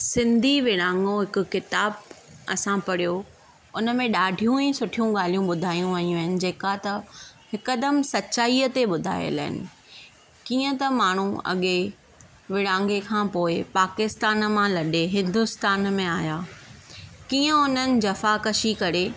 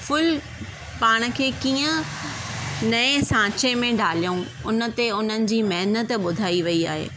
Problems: none marked